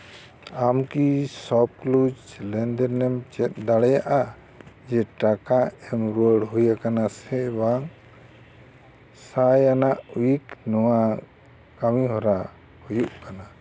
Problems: constant background noise